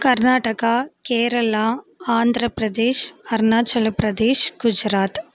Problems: constant background noise